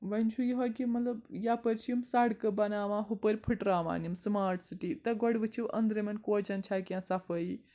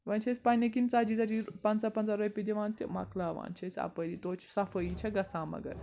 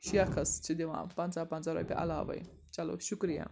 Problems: background sounds at intervals, background conversations at intervals